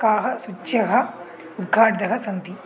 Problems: background sounds at intervals